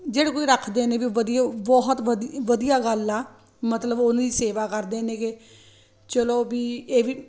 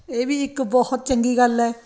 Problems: constant background noise